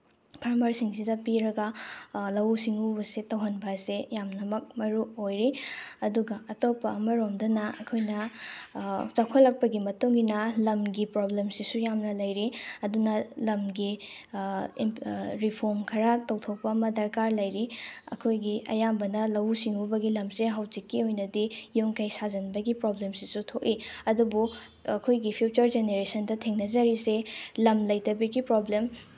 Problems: background sounds at intervals